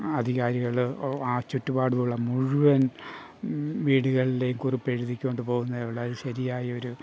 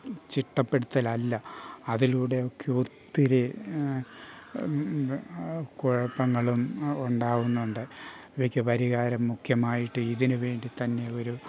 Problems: none marked